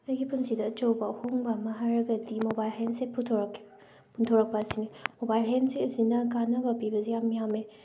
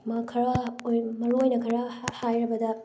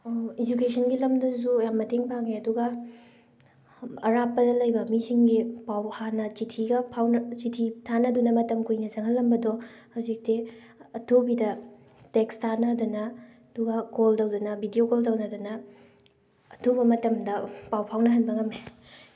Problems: background sounds at intervals